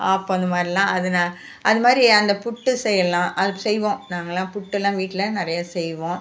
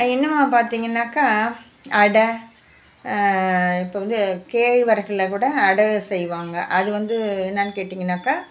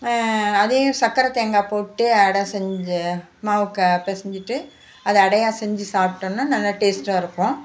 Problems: background sounds at intervals